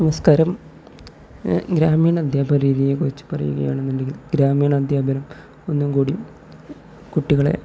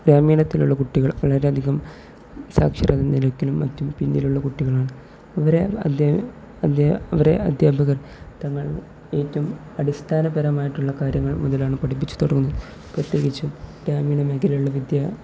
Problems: background sounds at intervals, low volume